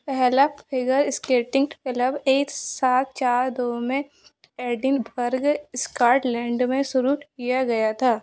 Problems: none marked